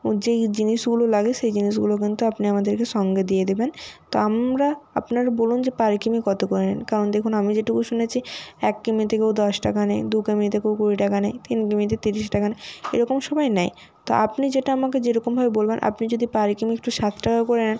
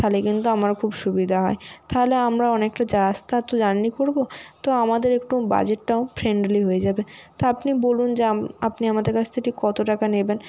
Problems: constant background noise